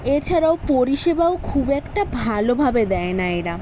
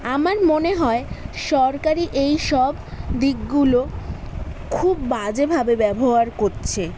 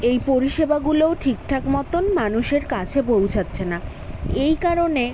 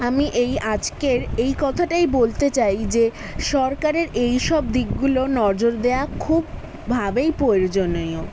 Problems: constant background noise, background conversations at intervals